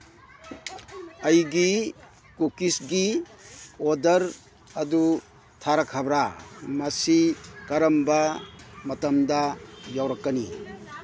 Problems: background conversations at intervals